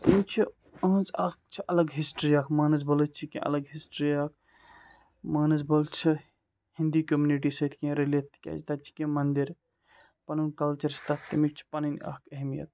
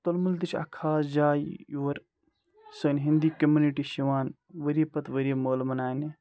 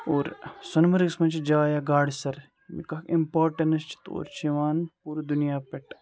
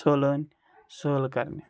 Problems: none marked